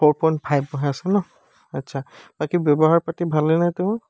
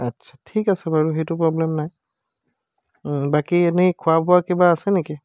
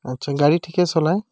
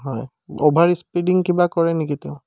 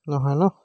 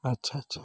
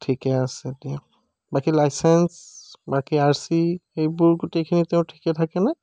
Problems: background sounds at intervals